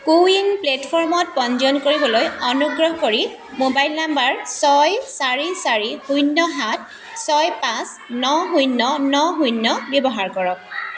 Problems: constant background noise